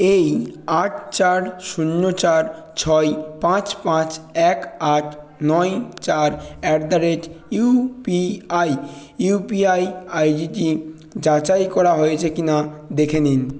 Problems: continuous background conversations